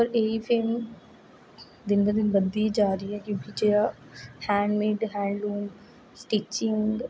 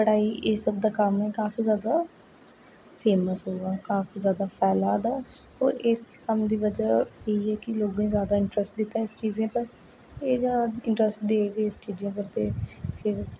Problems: constant background noise, echo, low volume